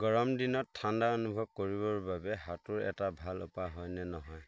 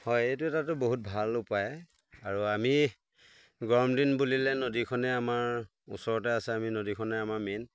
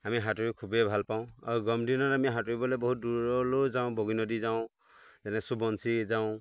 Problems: constant background noise